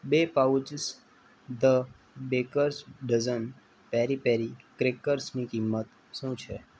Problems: none marked